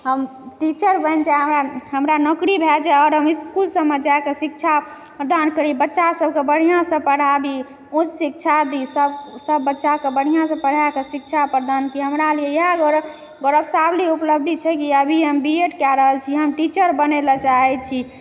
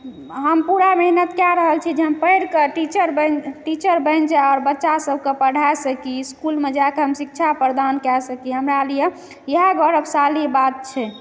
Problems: background sounds at intervals, echo